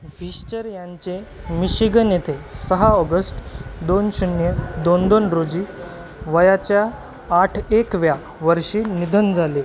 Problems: constant background noise, background conversations at intervals